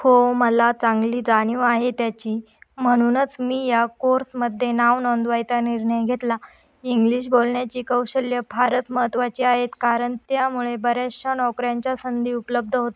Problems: none marked